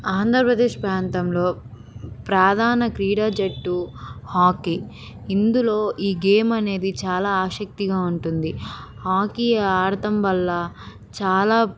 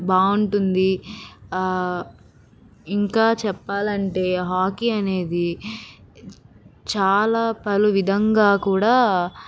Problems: none marked